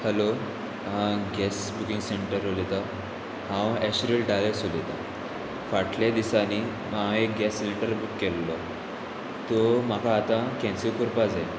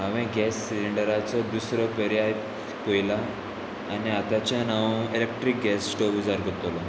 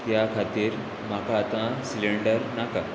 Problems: constant background noise